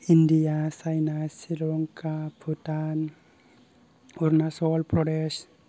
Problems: low volume